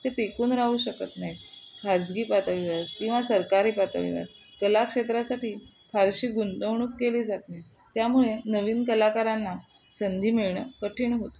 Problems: constant background noise